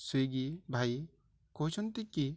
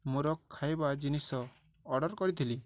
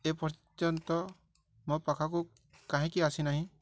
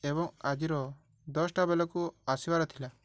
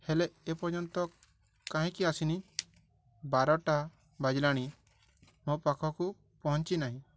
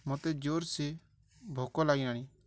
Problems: none marked